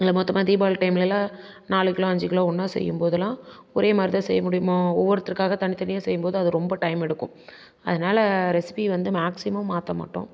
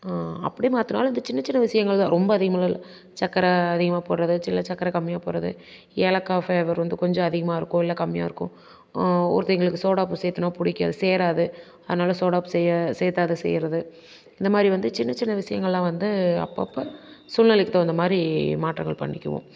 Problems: constant background noise